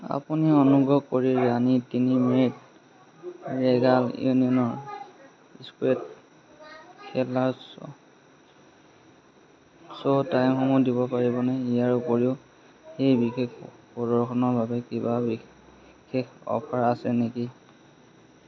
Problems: constant background noise, background conversations at intervals